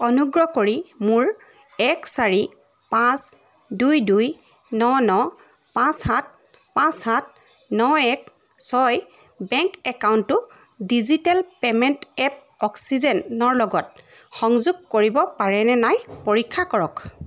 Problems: none marked